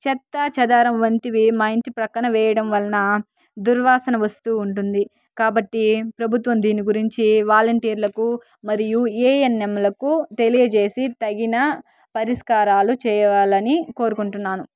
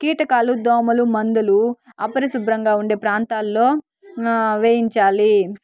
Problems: background sounds at intervals, background conversations at intervals